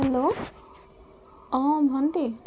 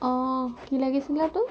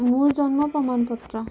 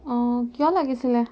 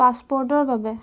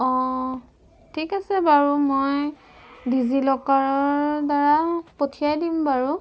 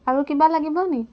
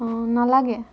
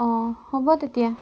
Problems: background sounds at intervals